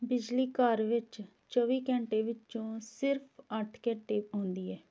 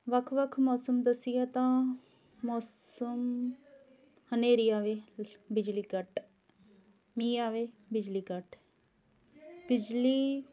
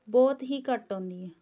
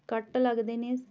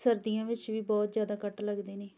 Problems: continuous background conversations